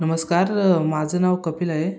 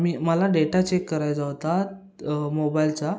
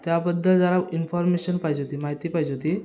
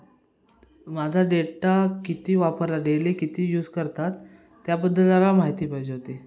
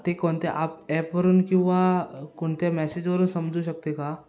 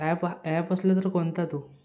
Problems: background sounds at intervals, background conversations at intervals